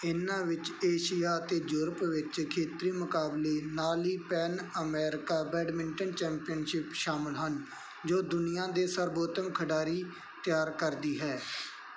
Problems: background sounds at intervals